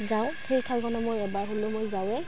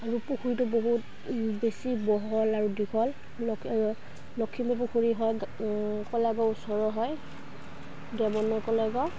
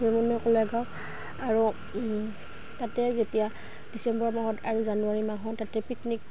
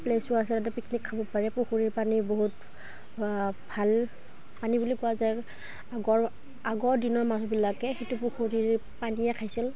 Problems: background sounds at intervals